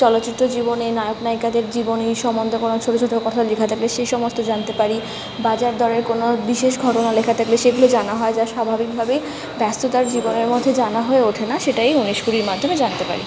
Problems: constant background noise, background conversations at intervals